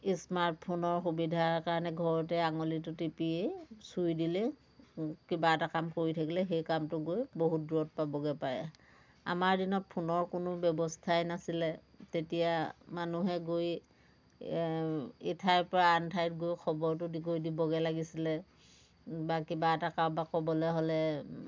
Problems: constant background noise, background conversations at intervals